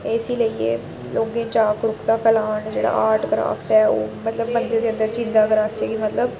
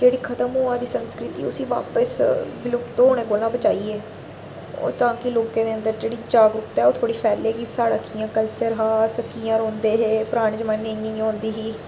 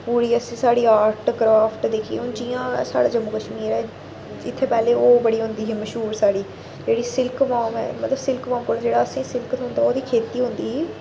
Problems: none marked